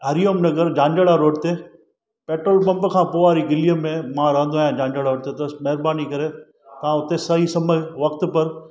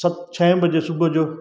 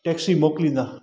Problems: constant background noise